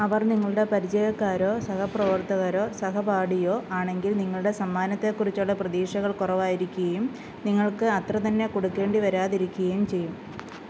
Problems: constant background noise